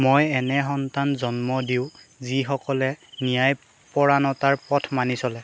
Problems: background sounds at intervals